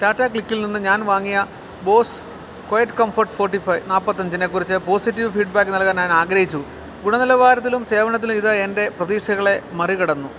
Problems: none marked